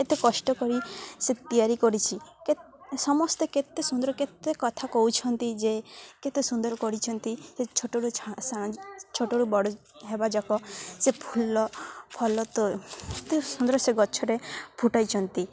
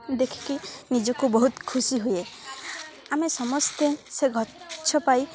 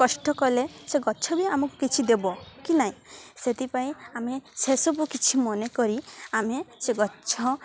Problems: constant background noise, continuous background conversations